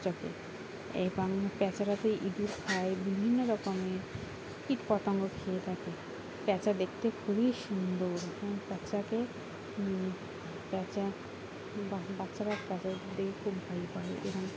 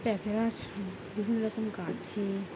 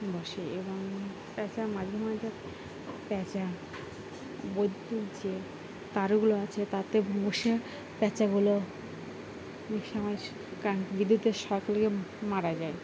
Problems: constant background noise